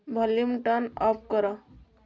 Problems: none marked